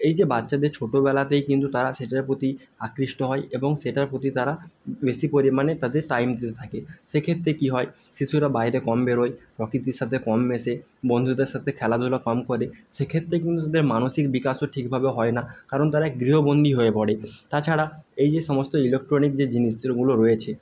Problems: constant background noise